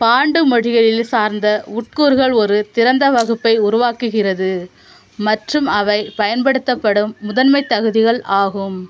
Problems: none marked